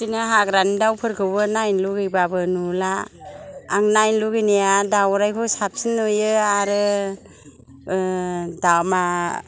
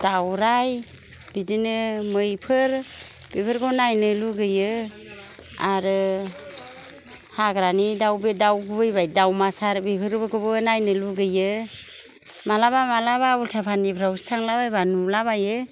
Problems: none marked